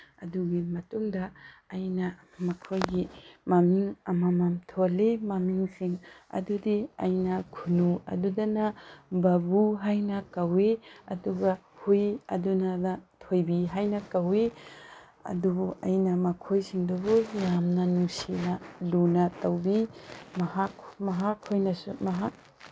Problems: constant background noise